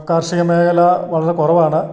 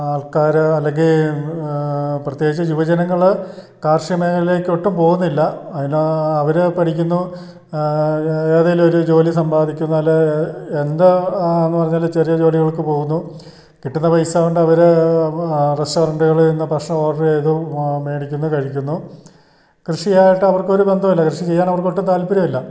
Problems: background sounds at intervals